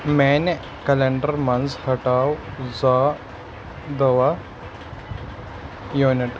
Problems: constant background noise